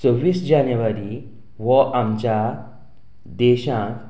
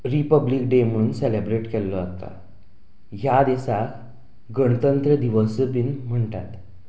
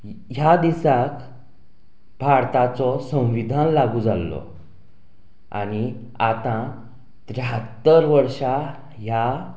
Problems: background sounds at intervals, background conversations at intervals